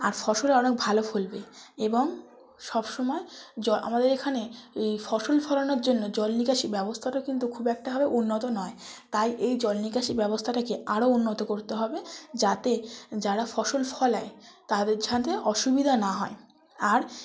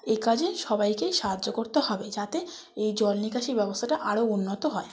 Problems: none marked